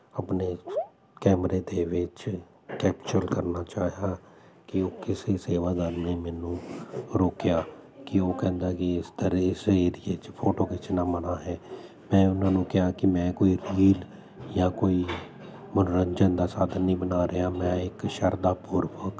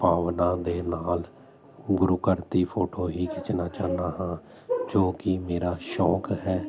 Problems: constant background noise